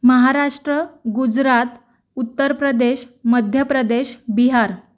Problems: none marked